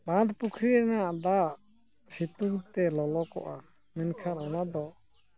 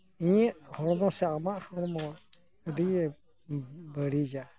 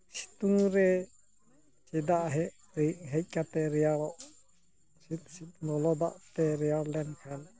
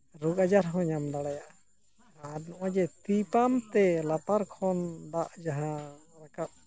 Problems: low volume